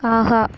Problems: background sounds at intervals